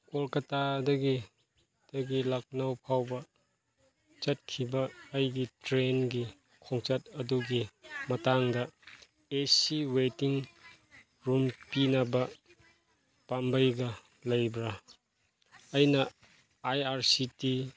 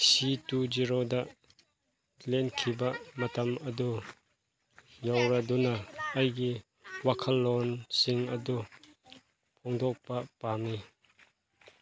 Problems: background conversations at intervals